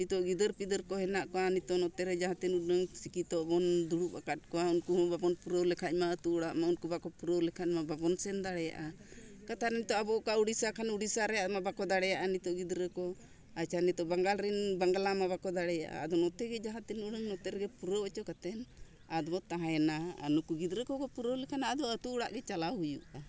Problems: none marked